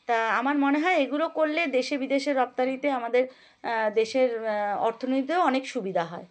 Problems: background sounds at intervals